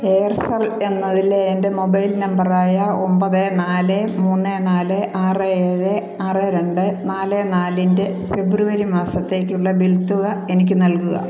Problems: constant background noise